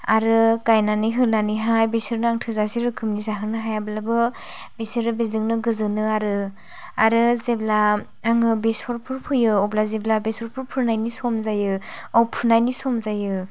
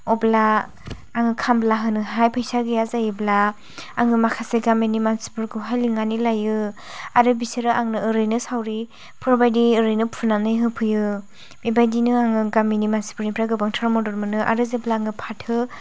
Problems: low volume